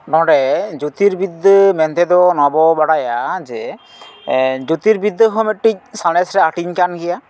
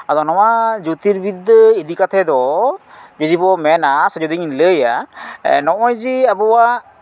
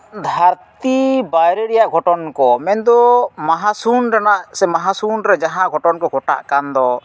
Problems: none marked